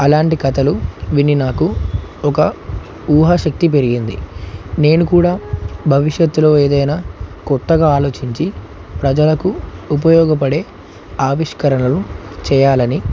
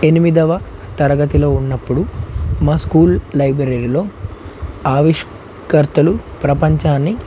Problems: constant background noise